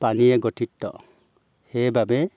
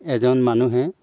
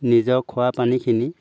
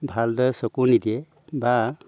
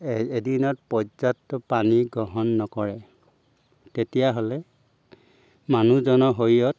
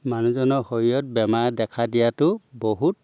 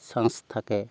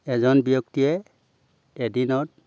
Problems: background sounds at intervals